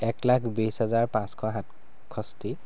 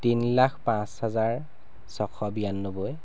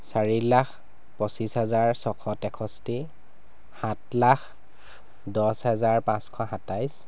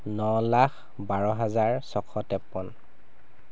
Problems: background sounds at intervals